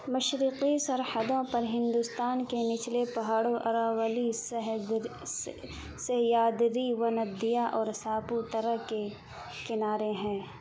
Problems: constant background noise